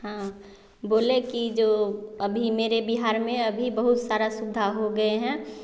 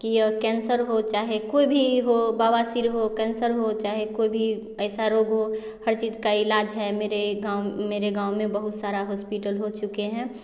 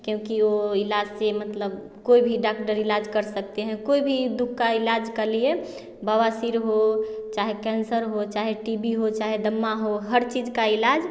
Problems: constant background noise, background conversations at intervals